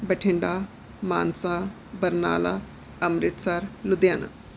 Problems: none marked